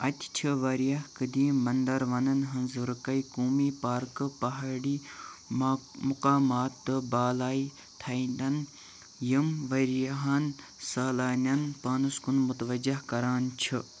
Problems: constant background noise